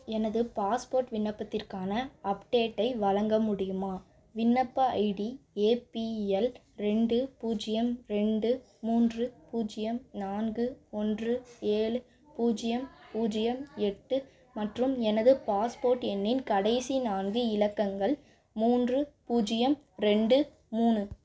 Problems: none marked